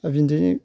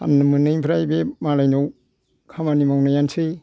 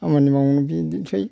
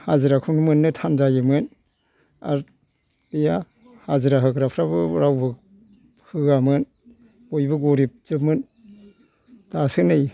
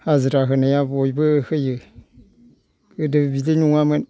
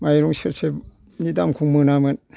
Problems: background sounds at intervals